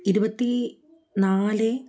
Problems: none marked